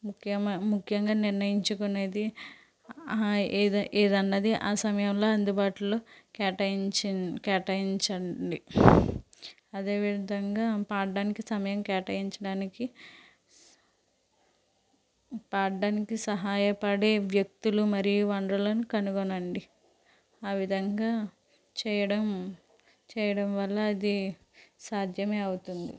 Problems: constant background noise